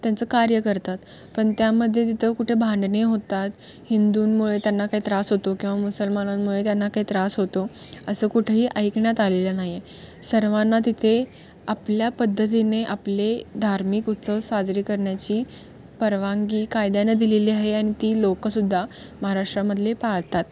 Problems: constant background noise, background conversations at intervals